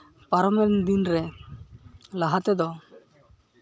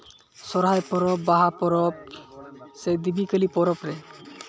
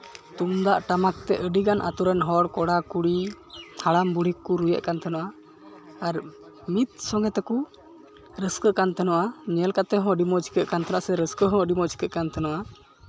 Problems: none marked